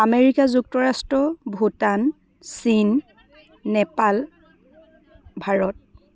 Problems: continuous background conversations